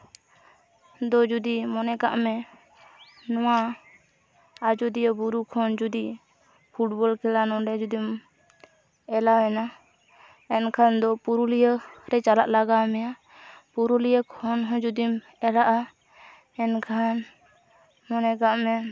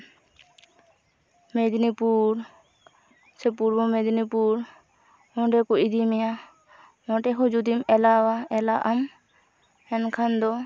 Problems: background sounds at intervals